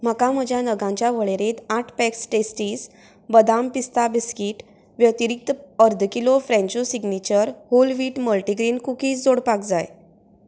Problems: continuous background conversations